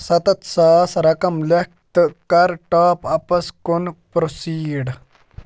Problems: none marked